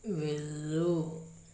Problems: low volume